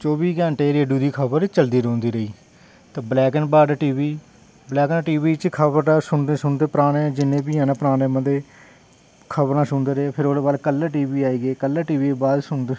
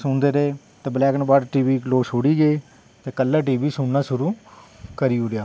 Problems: none marked